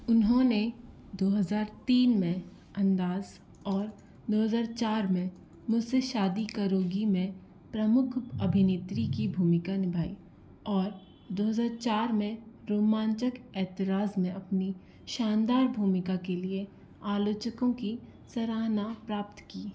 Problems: constant background noise